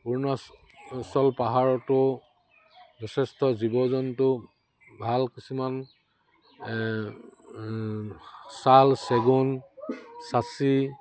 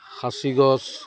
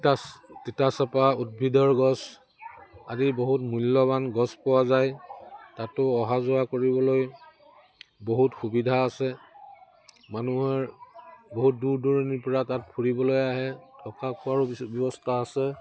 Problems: none marked